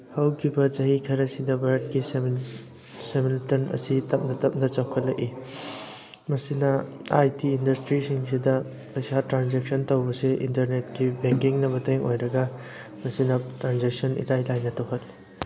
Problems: constant background noise